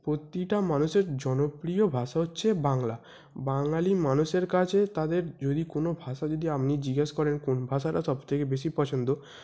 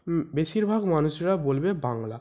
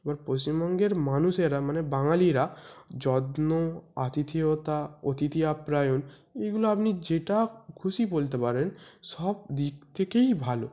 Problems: none marked